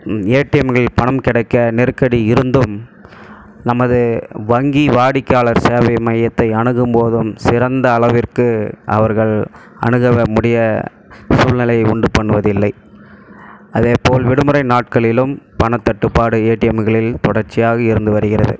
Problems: background sounds at intervals